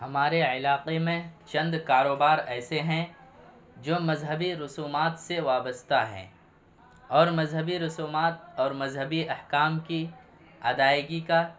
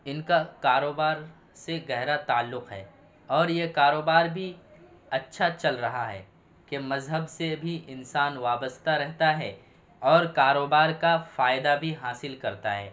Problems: none marked